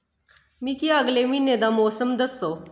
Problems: echo